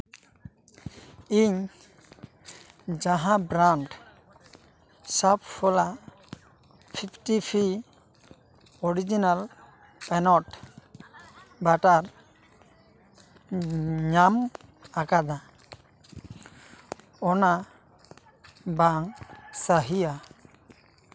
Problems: constant background noise, background conversations at intervals